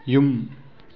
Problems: none marked